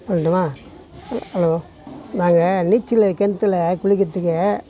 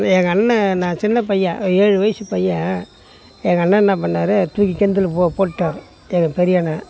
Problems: background sounds at intervals, background conversations at intervals